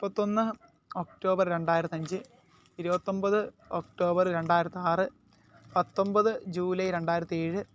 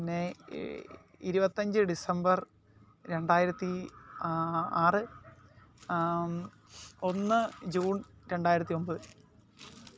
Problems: background sounds at intervals